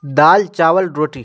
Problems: none marked